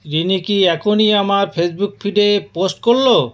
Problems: background sounds at intervals